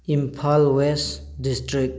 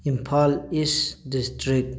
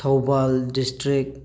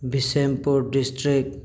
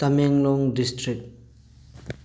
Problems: none marked